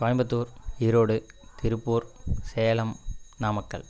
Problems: constant background noise